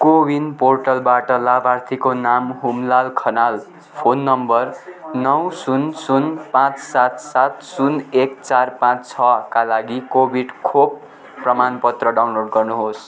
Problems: constant background noise